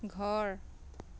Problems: constant background noise